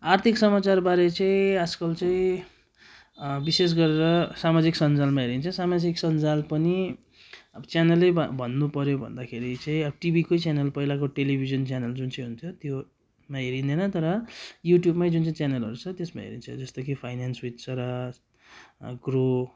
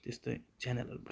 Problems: none marked